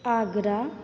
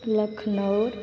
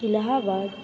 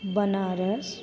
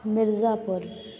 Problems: constant background noise, background conversations at intervals